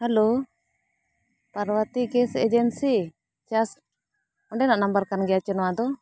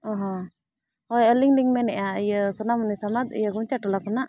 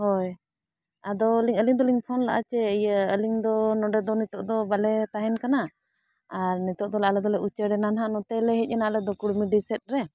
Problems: none marked